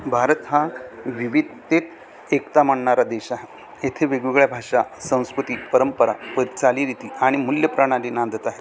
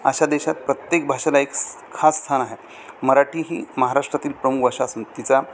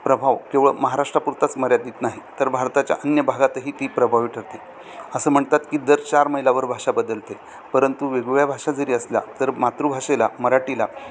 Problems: constant background noise, continuous background conversations